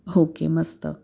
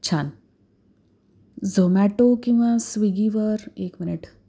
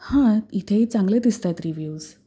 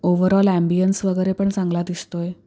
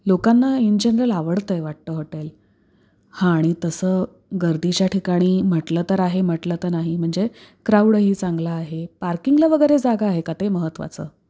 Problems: background sounds at intervals